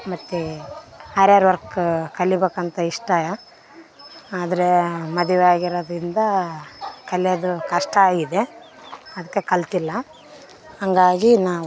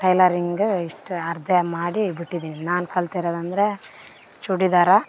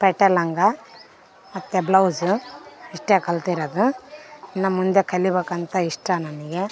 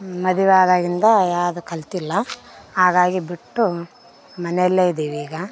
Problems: background sounds at intervals